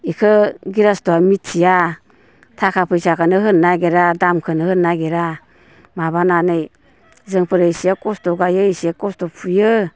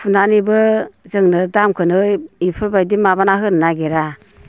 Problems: constant background noise